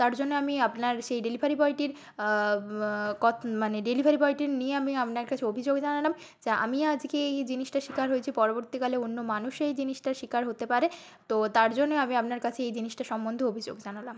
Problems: background sounds at intervals